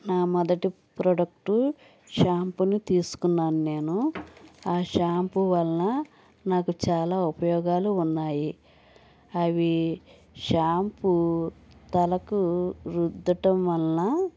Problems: background sounds at intervals